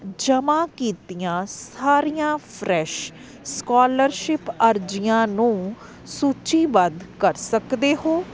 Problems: constant background noise